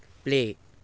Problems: none marked